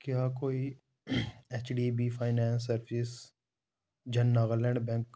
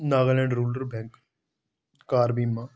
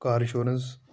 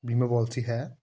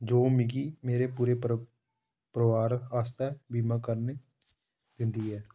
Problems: low volume